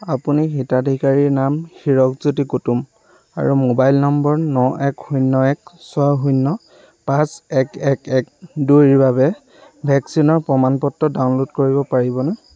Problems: constant background noise